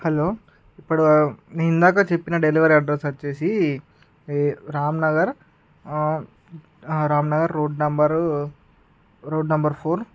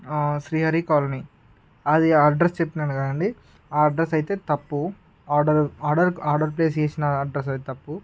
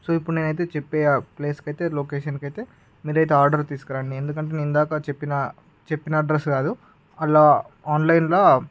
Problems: background sounds at intervals